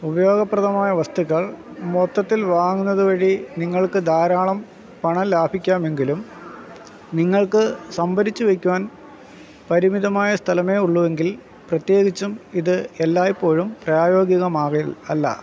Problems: background sounds at intervals